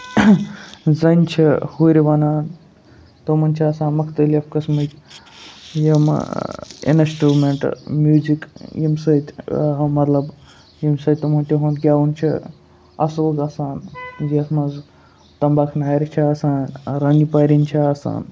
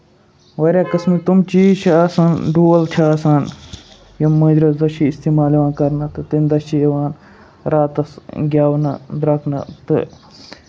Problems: constant background noise